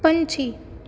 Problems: background sounds at intervals